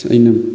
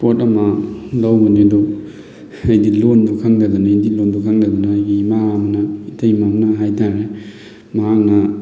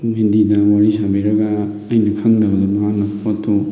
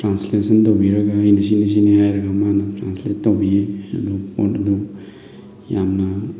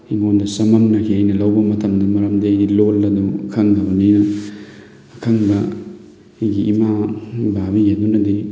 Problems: constant background noise, background conversations at intervals